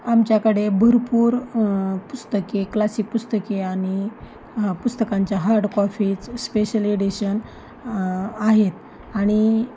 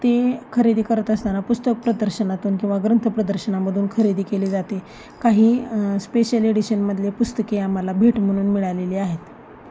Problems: constant background noise, background conversations at intervals